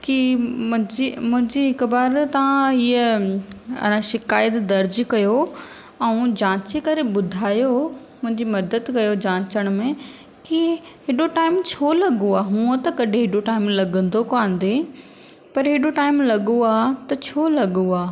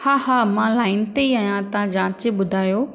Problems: constant background noise, echo